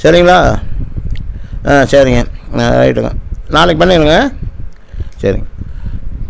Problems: constant background noise